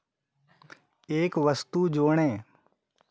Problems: background sounds at intervals